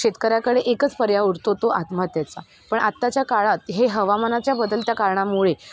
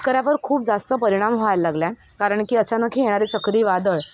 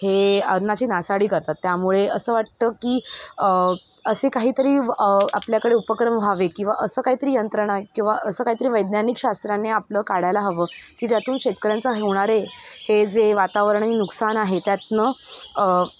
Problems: none marked